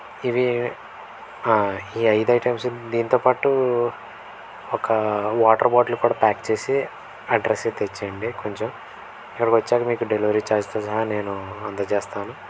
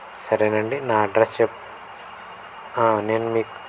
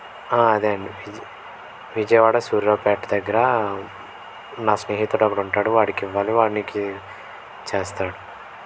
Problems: constant background noise